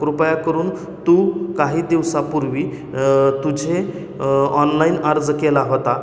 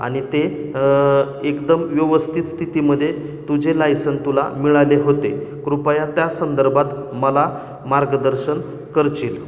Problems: constant background noise, echo